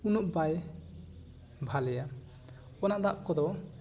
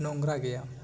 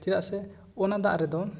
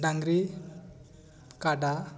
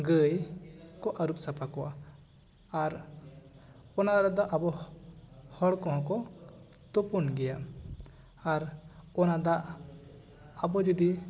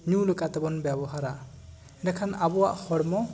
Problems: background conversations at intervals